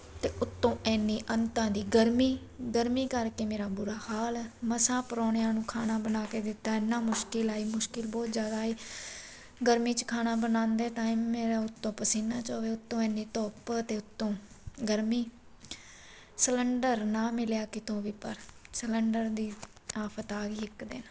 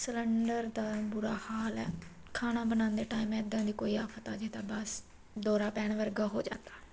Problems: constant background noise